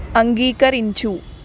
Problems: constant background noise, background conversations at intervals